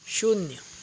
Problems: background sounds at intervals